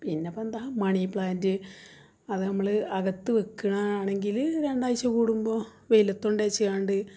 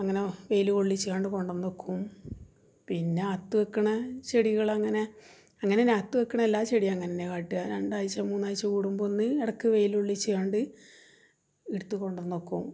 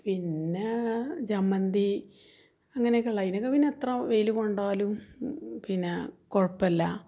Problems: low volume